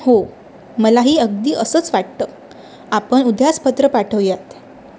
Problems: constant background noise